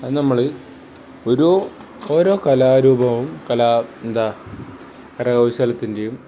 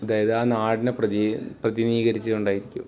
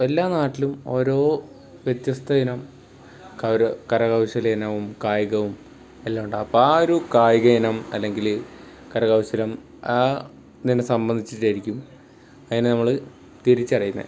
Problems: background sounds at intervals